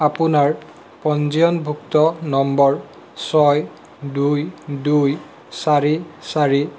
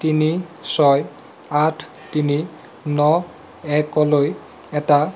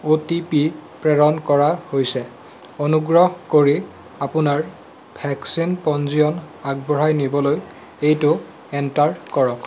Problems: constant background noise